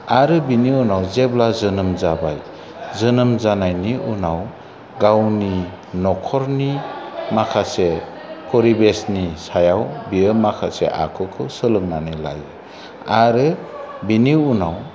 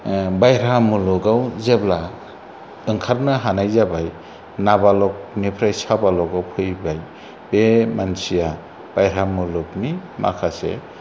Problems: none marked